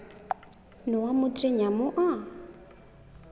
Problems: background sounds at intervals